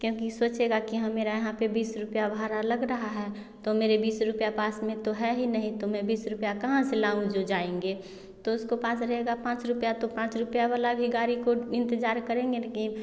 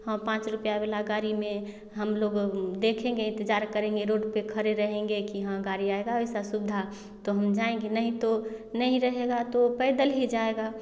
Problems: none marked